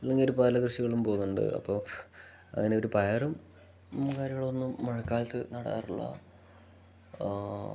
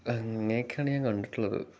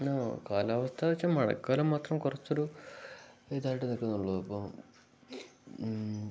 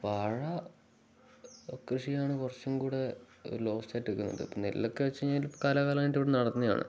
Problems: none marked